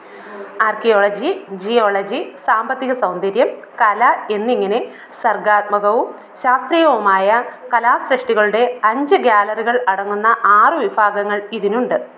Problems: none marked